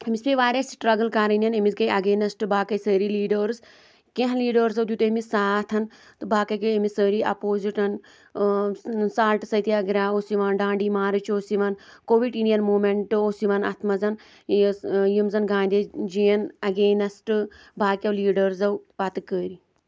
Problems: constant background noise